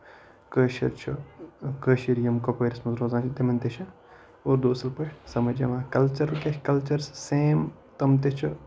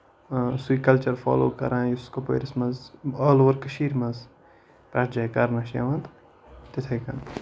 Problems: none marked